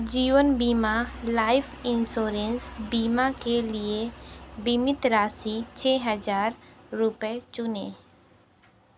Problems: none marked